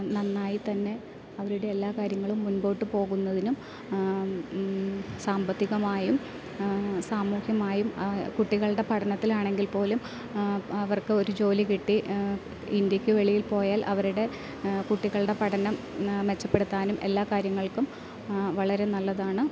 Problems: constant background noise